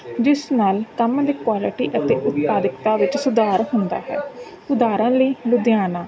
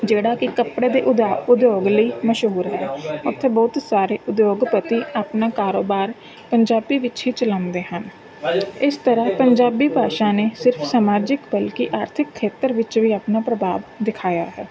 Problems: constant background noise, background conversations at intervals